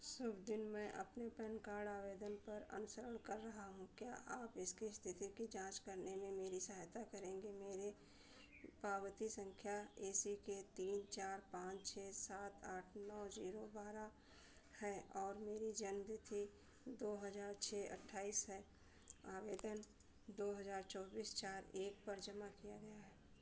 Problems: none marked